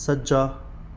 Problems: background sounds at intervals